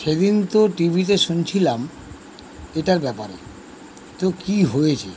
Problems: constant background noise